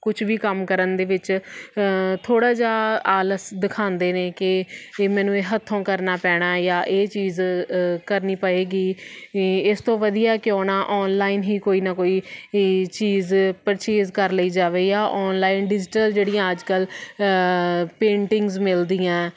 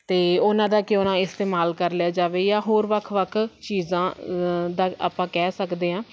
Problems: none marked